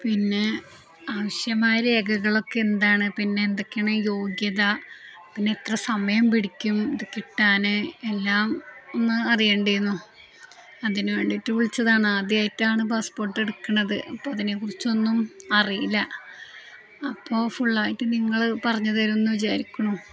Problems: none marked